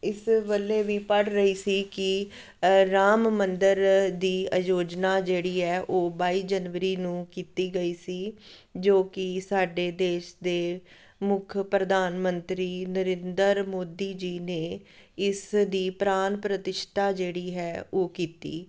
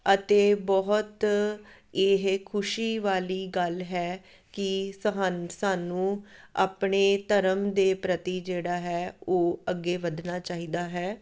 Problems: none marked